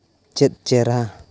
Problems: none marked